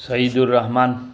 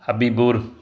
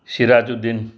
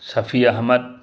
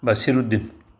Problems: background sounds at intervals